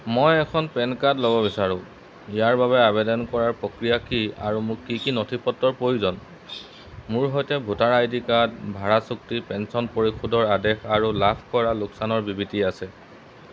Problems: background sounds at intervals